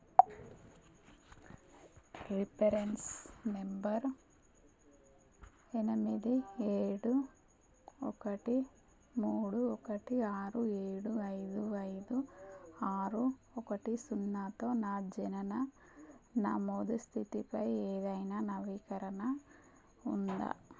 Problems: constant background noise